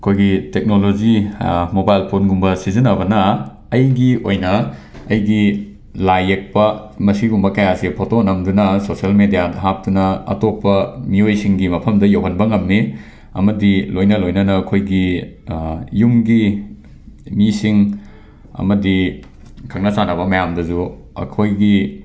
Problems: background sounds at intervals